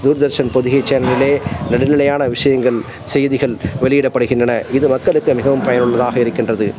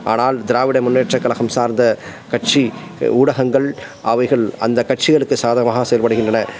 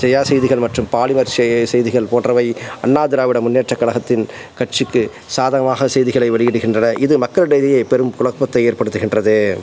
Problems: constant background noise